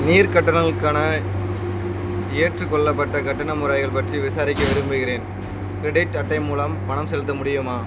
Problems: constant background noise